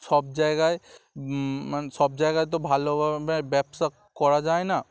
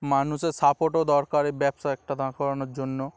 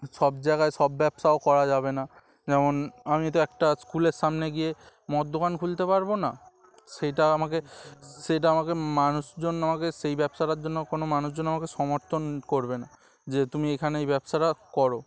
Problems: none marked